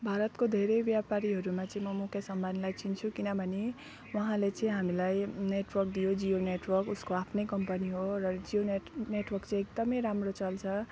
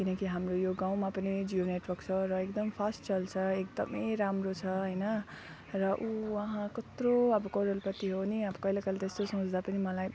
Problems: none marked